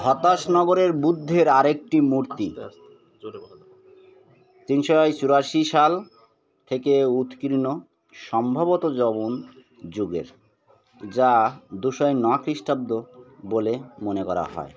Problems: continuous background conversations